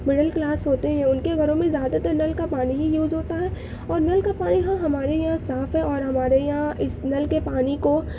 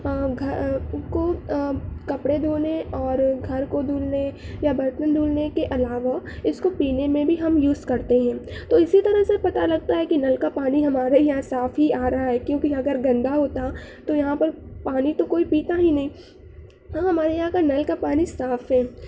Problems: constant background noise